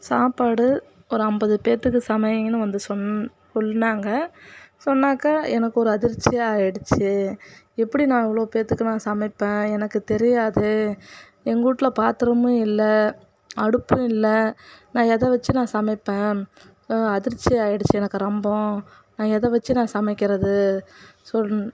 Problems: none marked